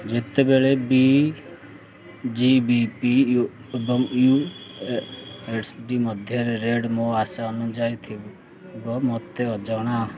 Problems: none marked